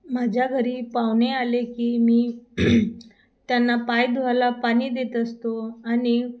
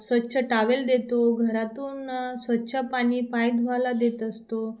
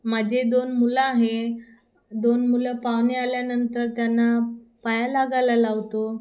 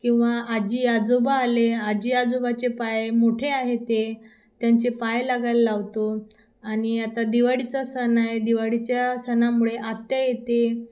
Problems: constant background noise